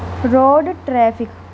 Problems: none marked